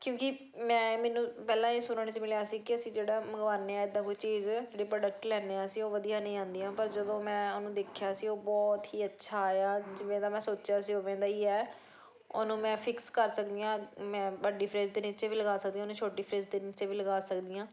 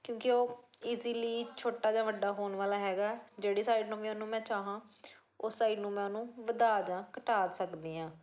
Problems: continuous background conversations